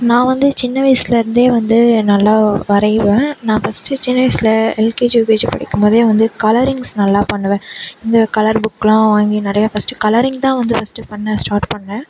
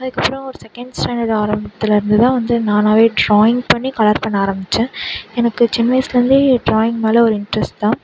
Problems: background sounds at intervals